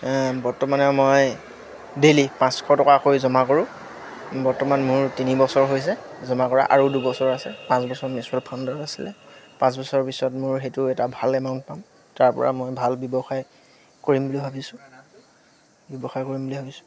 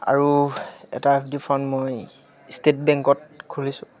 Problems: constant background noise, background conversations at intervals